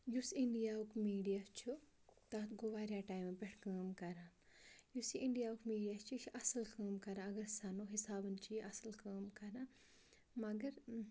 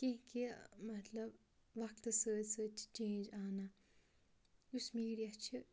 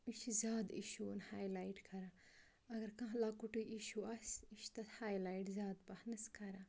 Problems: background sounds at intervals, low volume